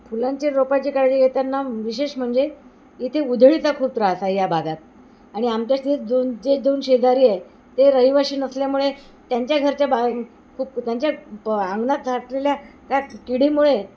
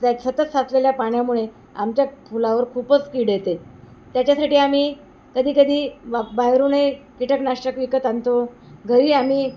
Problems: constant background noise